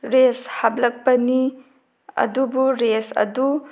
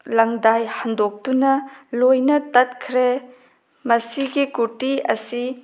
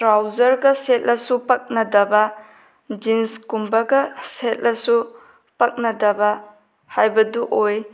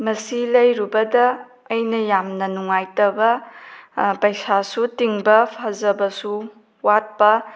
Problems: none marked